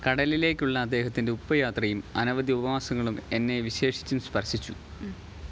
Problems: background conversations at intervals